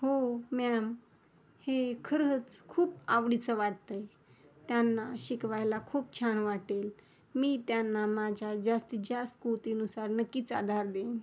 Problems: background sounds at intervals